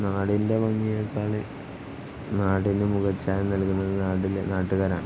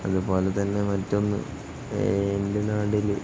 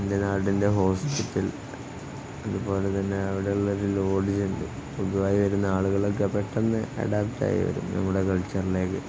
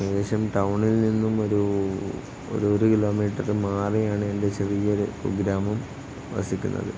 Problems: constant background noise, low volume